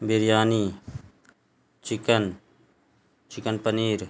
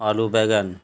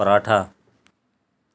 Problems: constant background noise